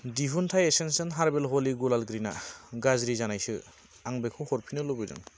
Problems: constant background noise